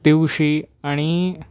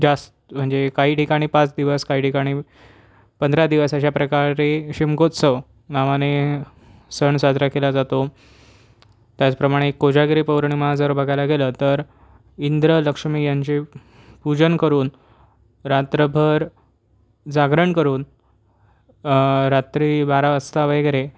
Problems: none marked